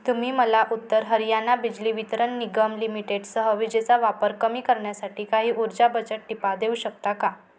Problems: none marked